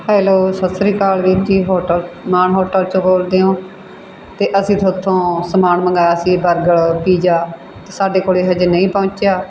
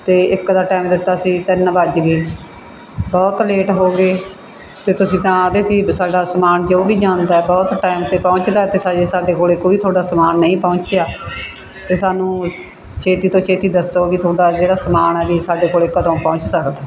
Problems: background sounds at intervals